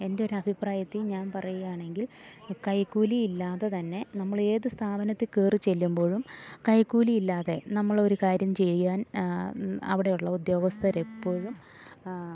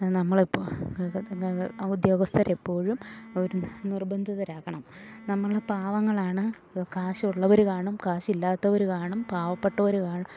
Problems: low volume